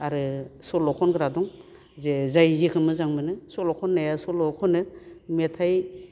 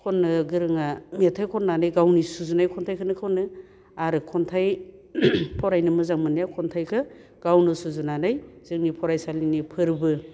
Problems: none marked